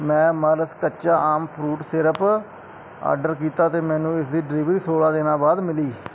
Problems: none marked